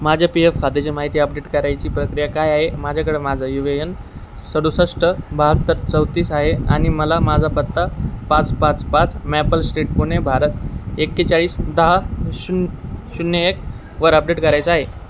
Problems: none marked